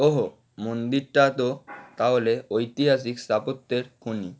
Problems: constant background noise